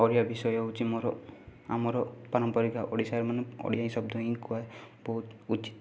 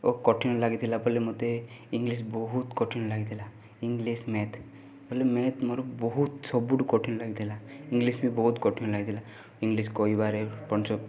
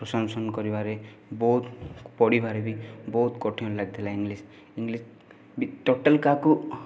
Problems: background sounds at intervals, continuous background conversations